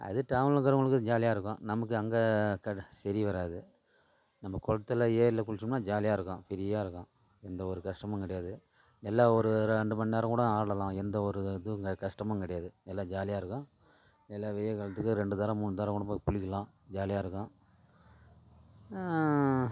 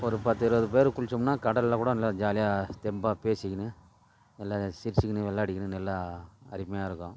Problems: none marked